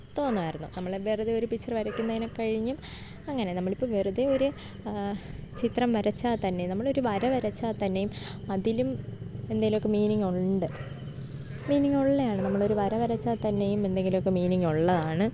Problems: low volume